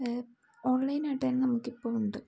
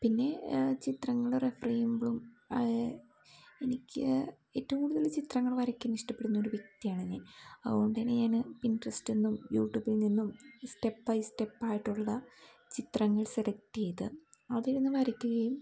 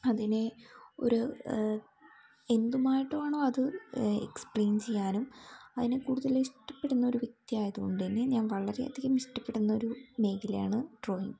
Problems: background sounds at intervals